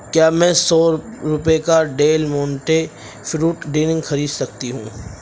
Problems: background sounds at intervals, background conversations at intervals